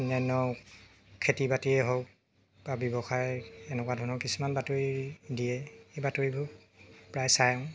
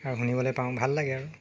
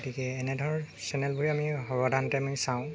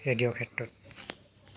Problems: constant background noise